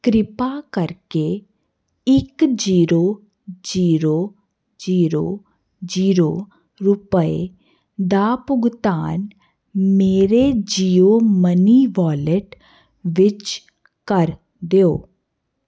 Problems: none marked